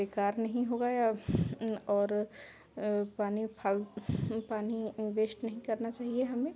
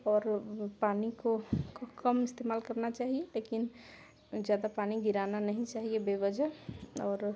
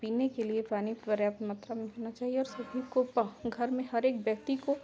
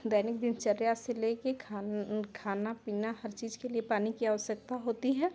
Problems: constant background noise